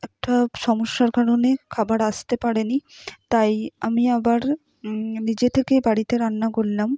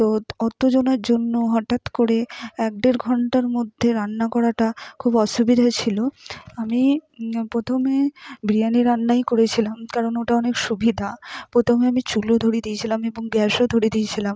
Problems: none marked